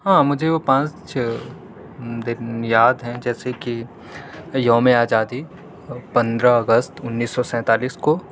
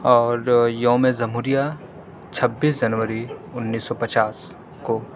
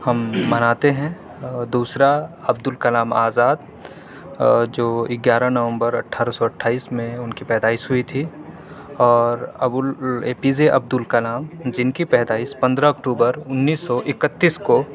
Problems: none marked